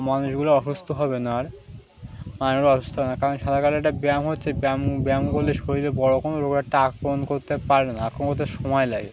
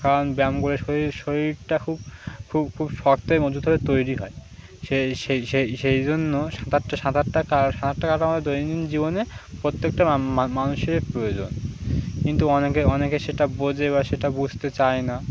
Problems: constant background noise